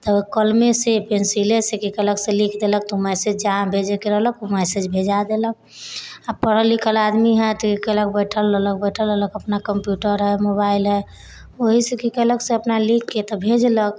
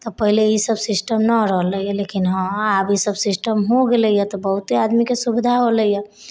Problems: none marked